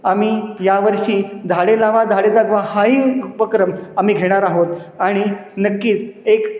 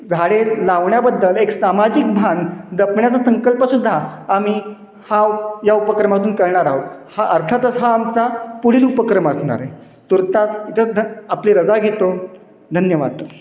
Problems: constant background noise, echo